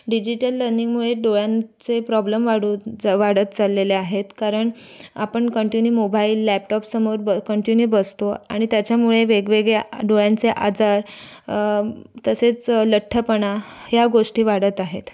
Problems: background sounds at intervals